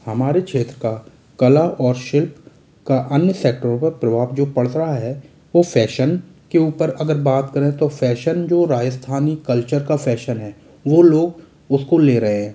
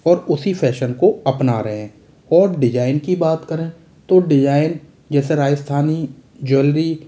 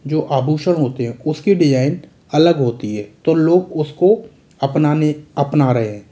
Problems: none marked